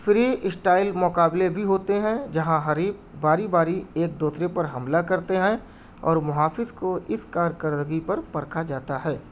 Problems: background sounds at intervals